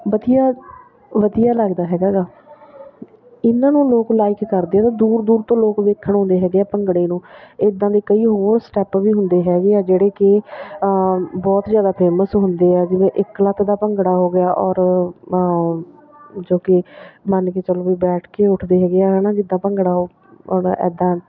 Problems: background sounds at intervals